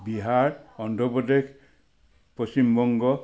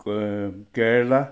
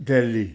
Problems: constant background noise